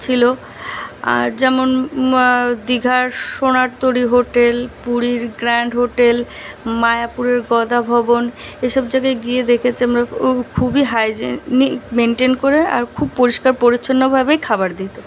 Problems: none marked